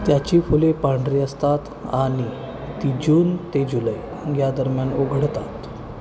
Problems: constant background noise, continuous background conversations